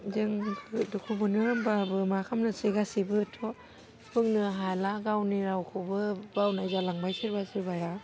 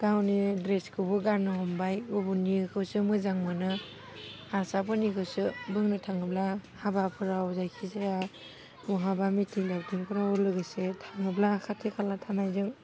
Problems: low volume